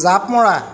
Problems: constant background noise